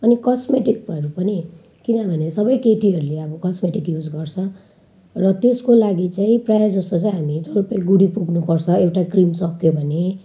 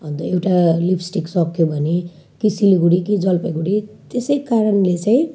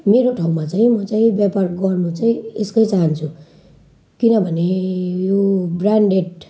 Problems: none marked